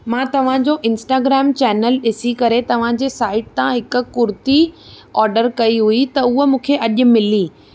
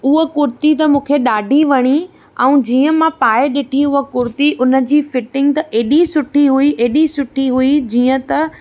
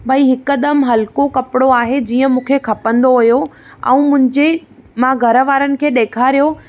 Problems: none marked